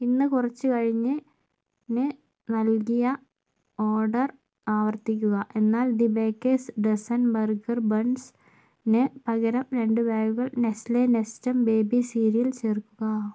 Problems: low volume